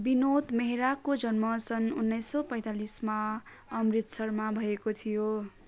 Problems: continuous background conversations